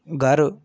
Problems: constant background noise